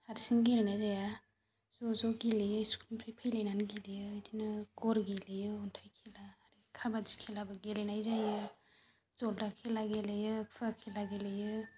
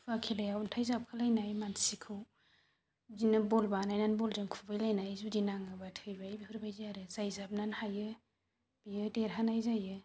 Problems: constant background noise